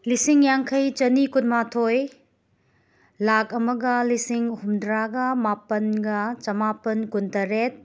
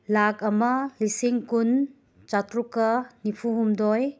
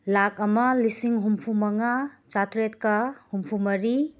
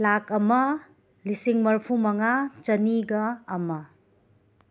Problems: background sounds at intervals